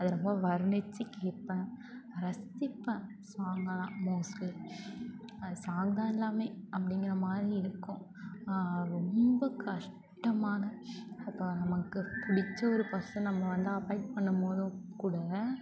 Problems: constant background noise, continuous background conversations